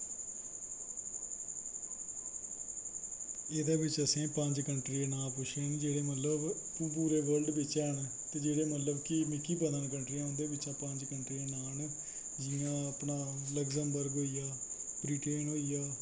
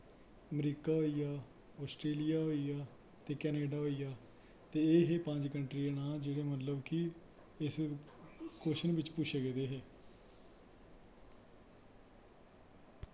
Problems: constant background noise, low volume